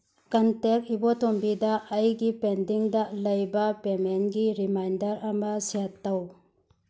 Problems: none marked